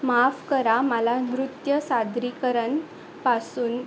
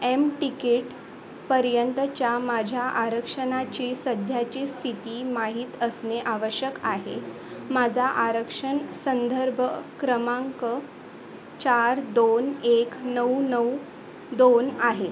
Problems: constant background noise, background conversations at intervals